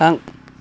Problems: none marked